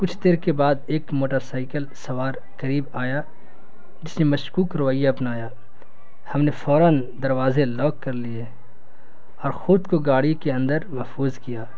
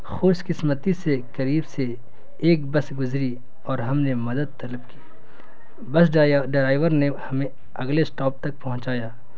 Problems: constant background noise